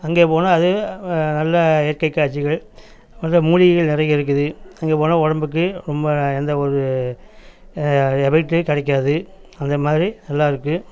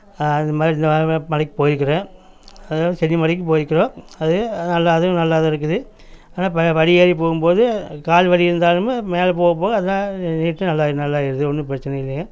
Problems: none marked